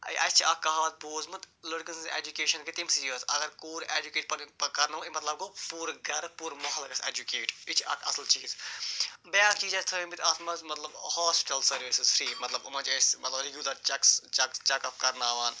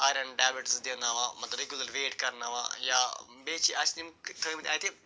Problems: constant background noise